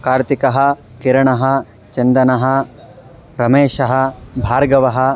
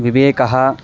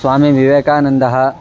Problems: background sounds at intervals